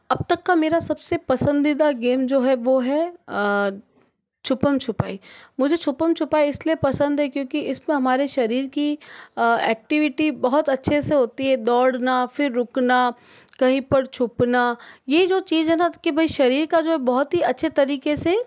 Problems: background sounds at intervals